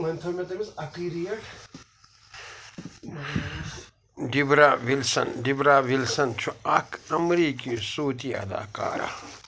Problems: constant background noise, background conversations at intervals